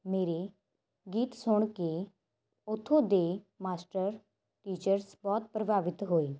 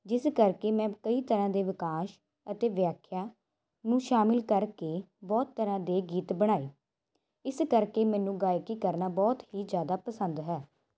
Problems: constant background noise